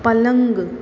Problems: constant background noise